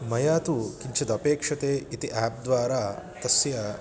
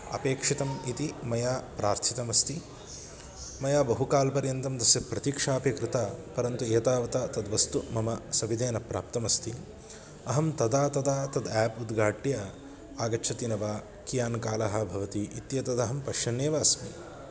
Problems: constant background noise